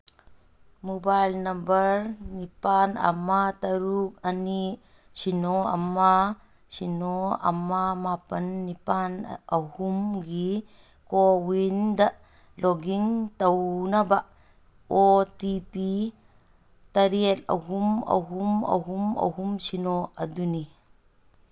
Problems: none marked